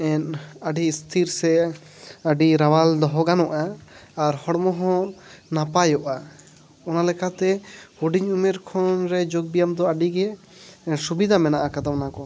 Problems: background sounds at intervals, background conversations at intervals